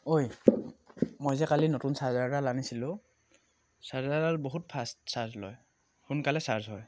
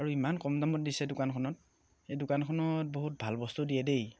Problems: none marked